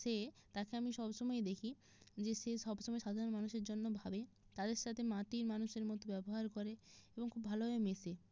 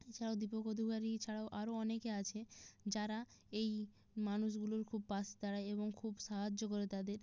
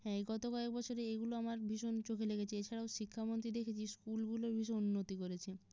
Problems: none marked